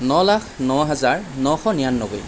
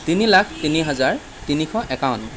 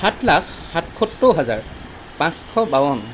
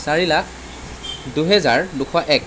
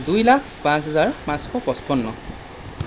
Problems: constant background noise